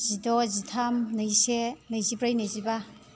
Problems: none marked